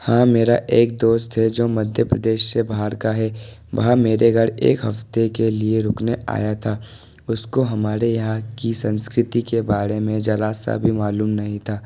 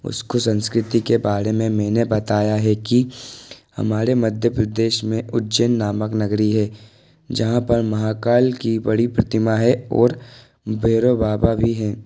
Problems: constant background noise